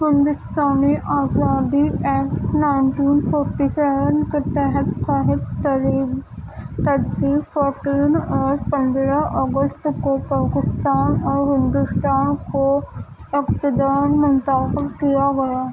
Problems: constant background noise